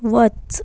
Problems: constant background noise